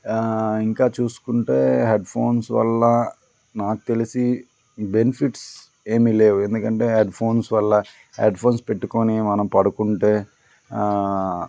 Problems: background conversations at intervals